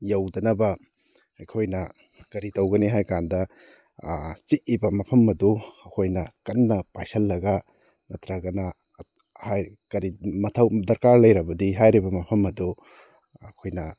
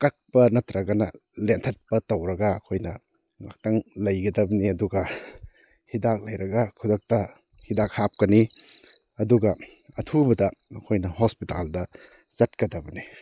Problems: none marked